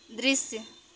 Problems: constant background noise